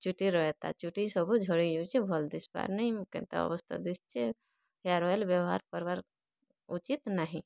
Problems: none marked